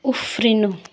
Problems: background sounds at intervals